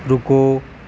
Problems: constant background noise